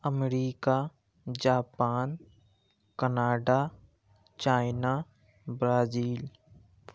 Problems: background sounds at intervals